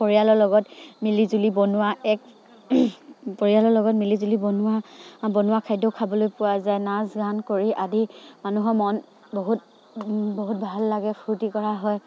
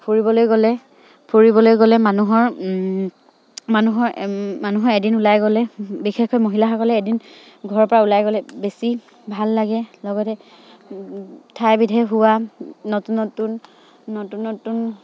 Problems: none marked